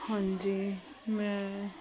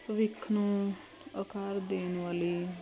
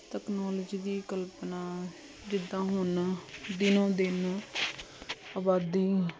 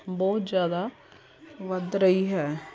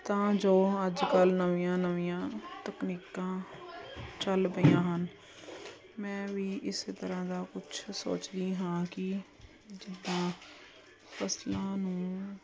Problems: none marked